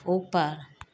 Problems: constant background noise